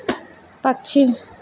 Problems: none marked